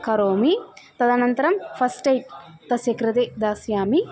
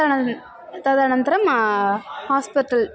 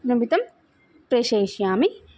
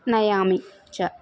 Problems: constant background noise, continuous background conversations